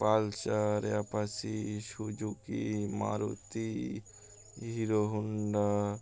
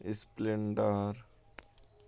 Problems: constant background noise